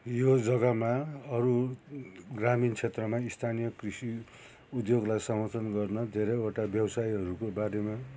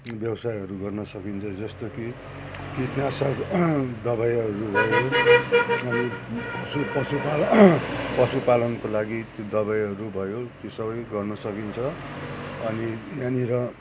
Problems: constant background noise